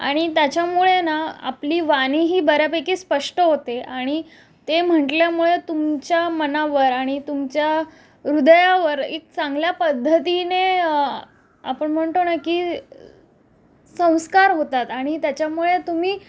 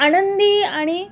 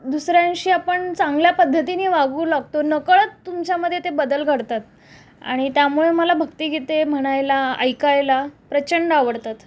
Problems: background sounds at intervals